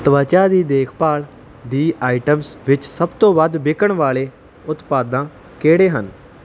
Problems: none marked